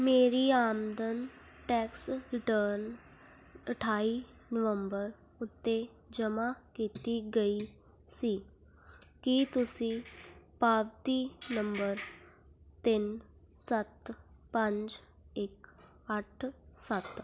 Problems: none marked